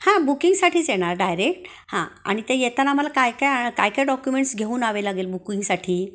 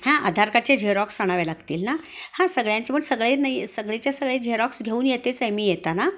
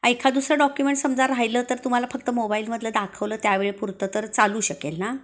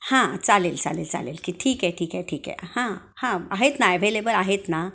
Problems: constant background noise